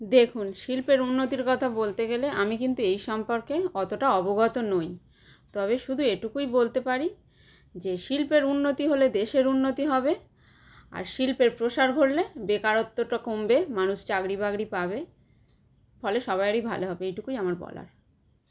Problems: none marked